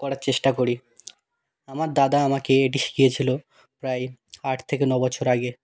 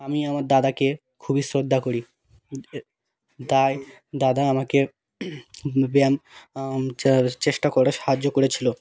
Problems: background sounds at intervals